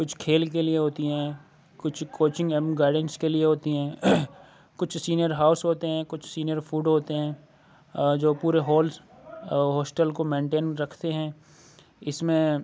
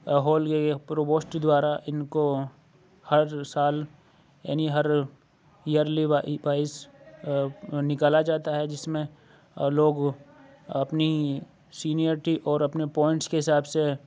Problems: none marked